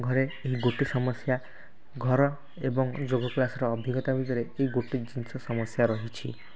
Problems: constant background noise